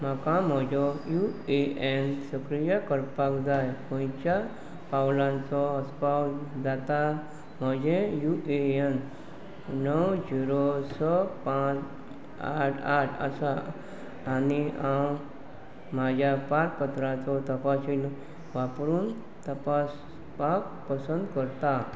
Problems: constant background noise